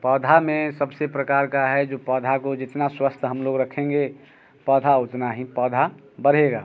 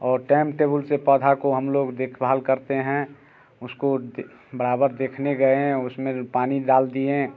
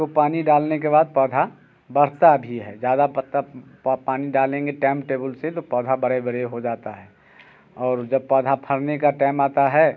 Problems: constant background noise